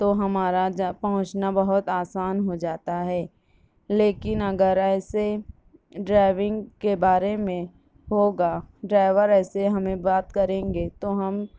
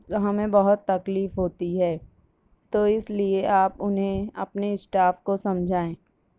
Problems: none marked